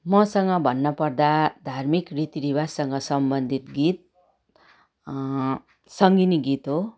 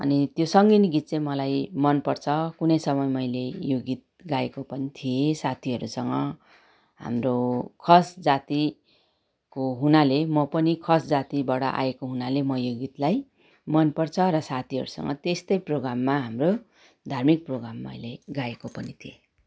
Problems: background sounds at intervals